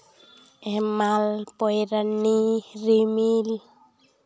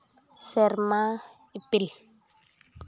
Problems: background sounds at intervals